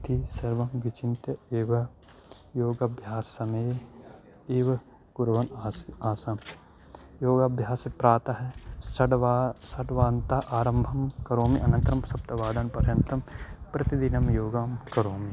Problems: none marked